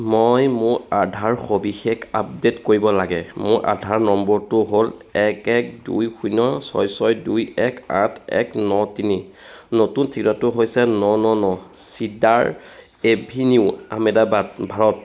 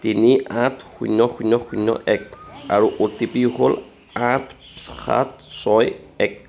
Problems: background sounds at intervals